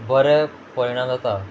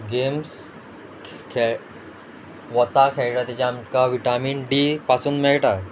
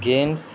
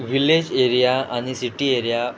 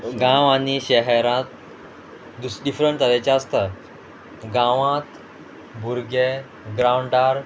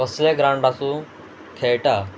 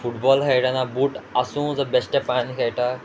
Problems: background sounds at intervals